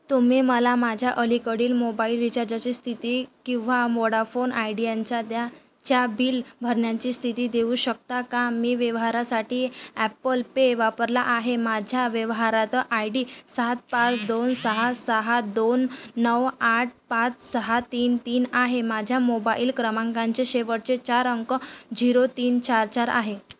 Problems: none marked